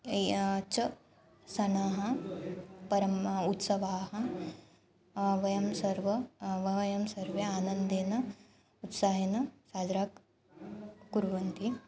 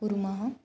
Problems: background sounds at intervals